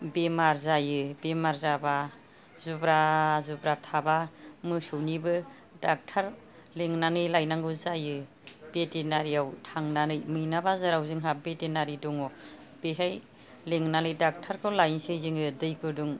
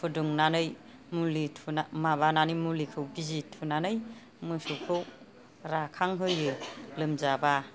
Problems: none marked